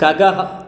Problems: constant background noise